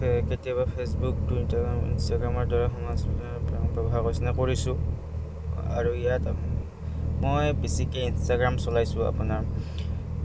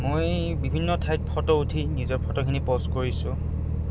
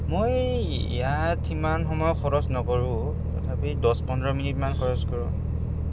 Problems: background sounds at intervals